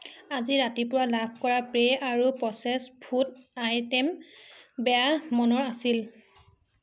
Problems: none marked